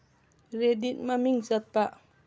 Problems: none marked